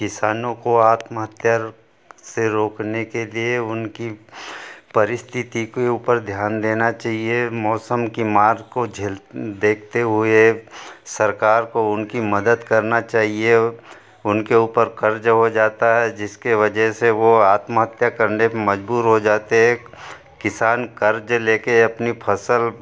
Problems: none marked